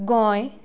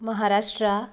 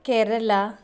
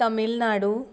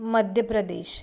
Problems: none marked